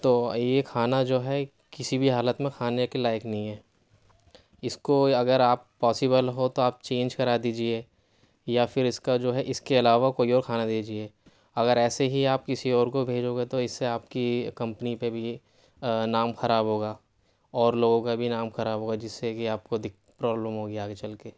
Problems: none marked